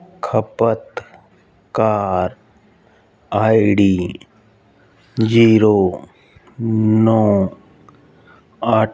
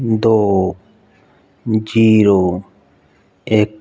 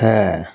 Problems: background sounds at intervals